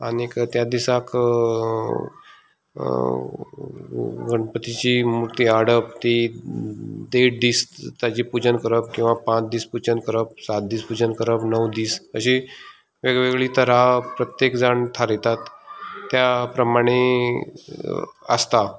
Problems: none marked